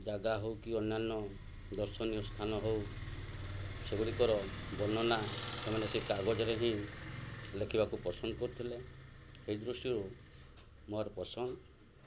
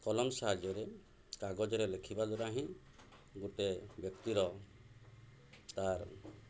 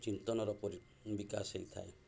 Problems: none marked